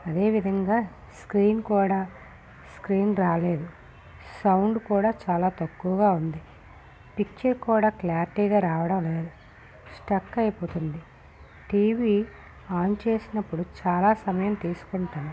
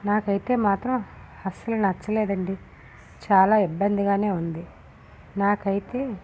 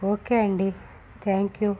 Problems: constant background noise, low volume